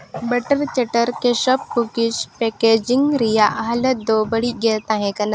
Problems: background sounds at intervals